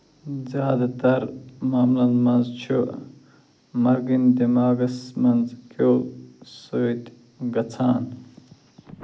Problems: low volume